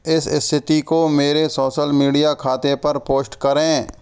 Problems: none marked